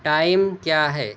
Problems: none marked